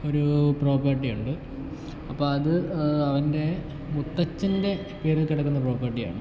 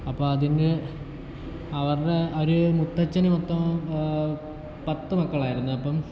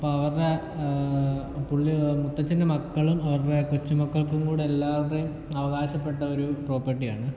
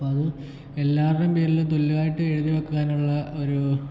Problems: background sounds at intervals